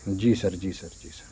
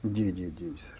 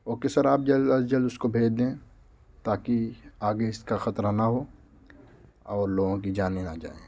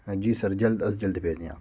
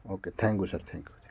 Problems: constant background noise